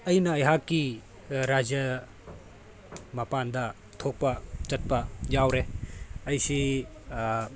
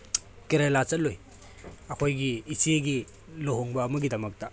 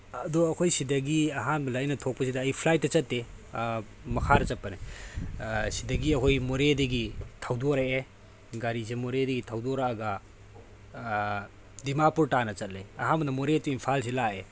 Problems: background sounds at intervals